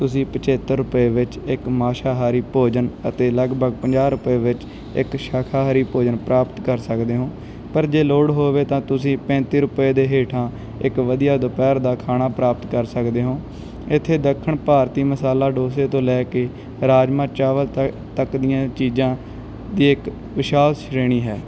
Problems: background sounds at intervals